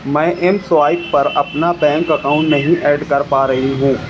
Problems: constant background noise, continuous background conversations